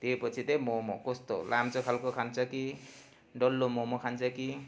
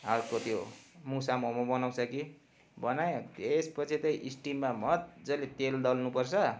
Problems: constant background noise